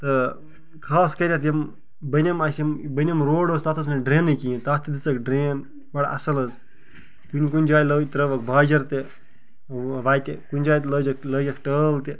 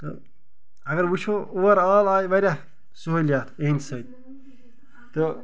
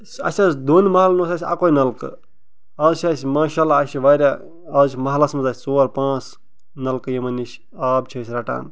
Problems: none marked